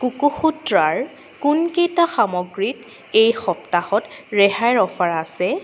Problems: constant background noise